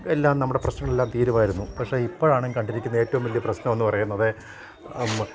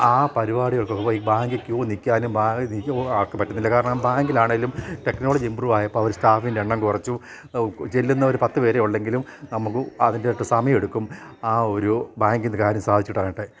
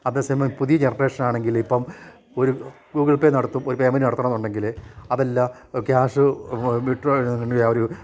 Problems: none marked